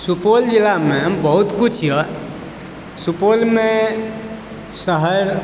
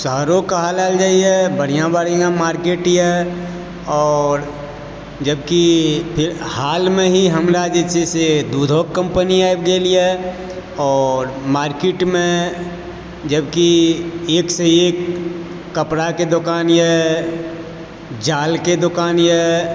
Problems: background sounds at intervals